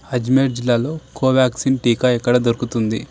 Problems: none marked